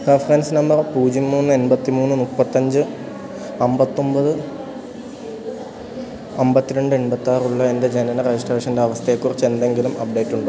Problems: constant background noise